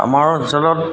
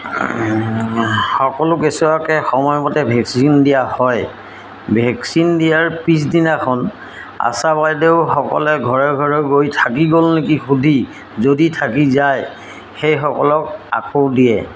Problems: background sounds at intervals